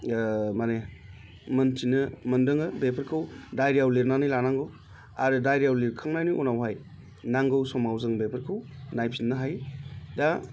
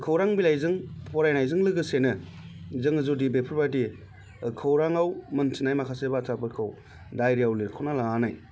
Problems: constant background noise